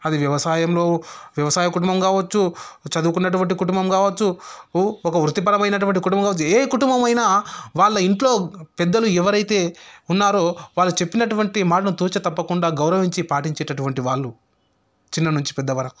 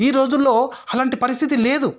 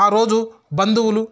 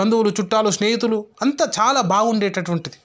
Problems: none marked